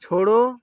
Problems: constant background noise